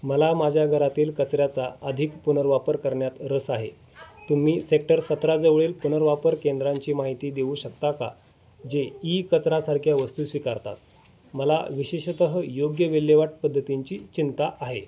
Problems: constant background noise, background conversations at intervals